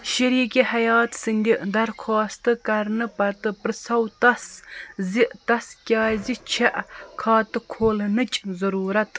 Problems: none marked